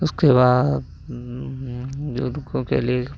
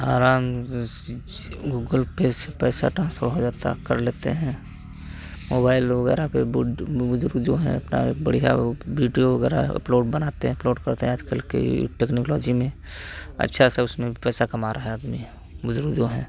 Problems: constant background noise